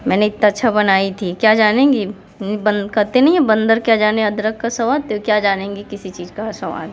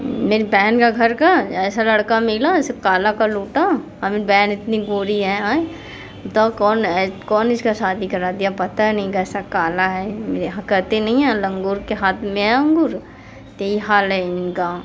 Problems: constant background noise